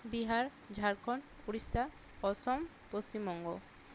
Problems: constant background noise